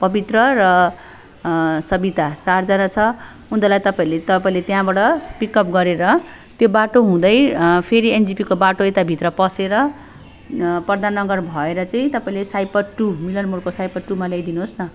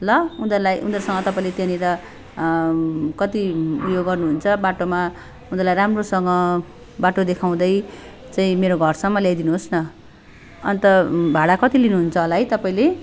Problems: none marked